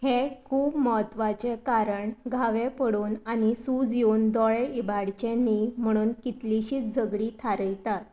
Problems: none marked